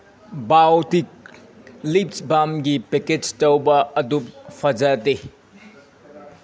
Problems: background sounds at intervals